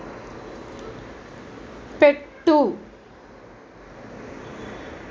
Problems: none marked